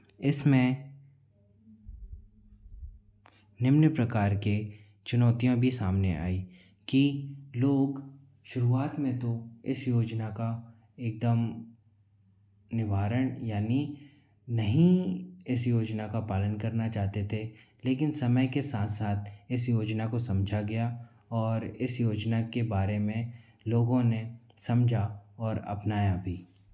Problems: constant background noise